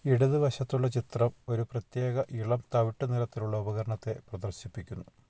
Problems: none marked